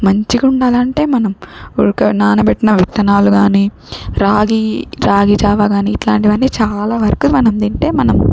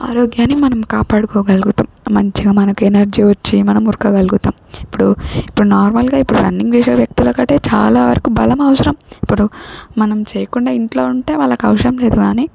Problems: none marked